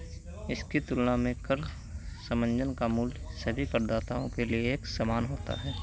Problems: constant background noise